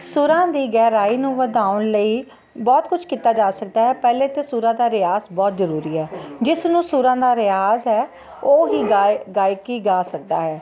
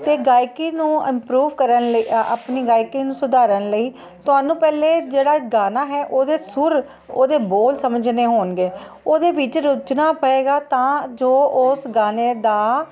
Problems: constant background noise